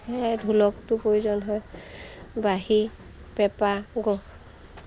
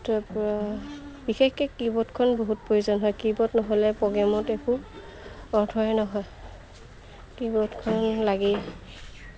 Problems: constant background noise